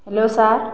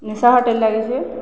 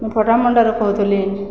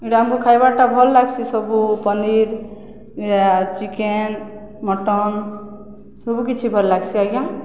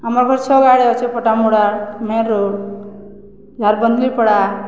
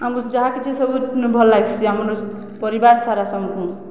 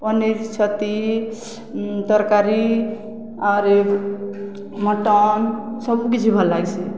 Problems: none marked